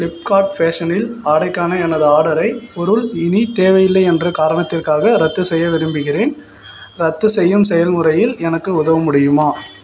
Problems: background sounds at intervals